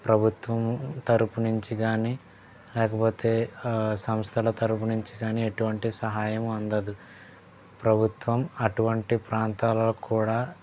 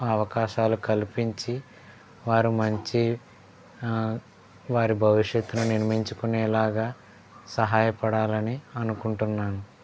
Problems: background sounds at intervals, background conversations at intervals